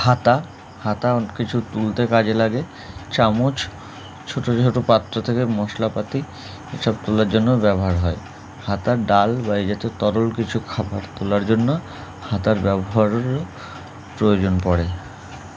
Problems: background sounds at intervals